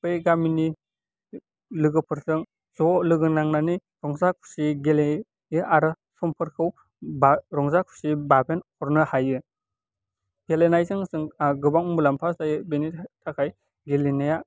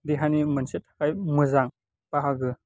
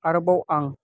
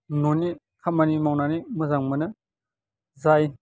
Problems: constant background noise